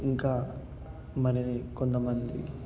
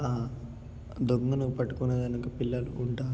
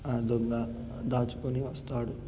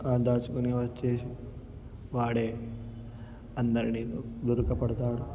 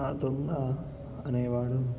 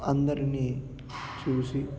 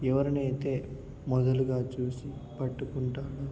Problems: background sounds at intervals, background conversations at intervals, low volume